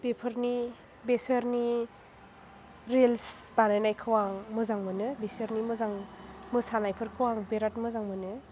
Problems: background sounds at intervals